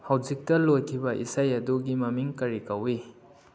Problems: low volume